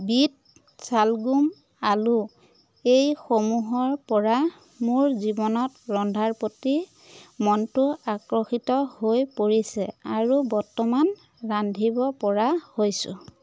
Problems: constant background noise, background conversations at intervals